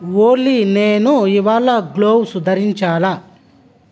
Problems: constant background noise